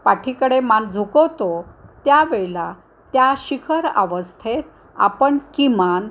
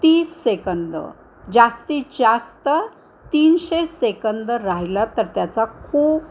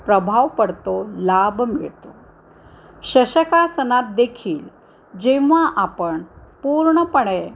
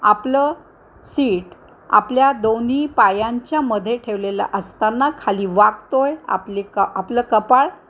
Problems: constant background noise